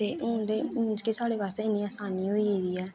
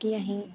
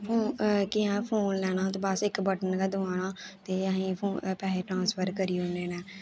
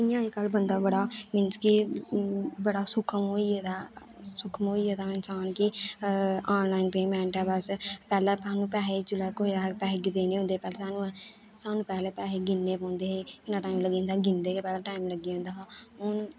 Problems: constant background noise